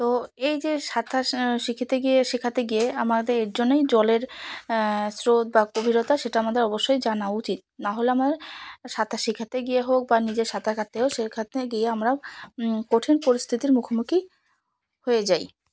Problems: none marked